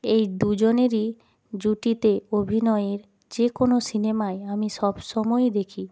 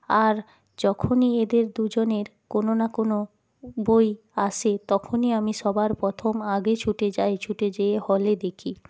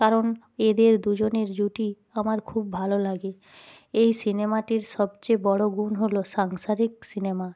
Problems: background sounds at intervals